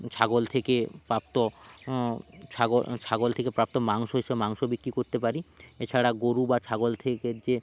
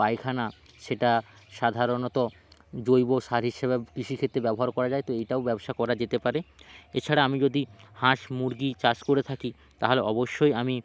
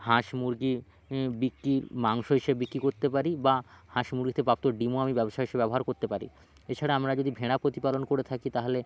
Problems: background sounds at intervals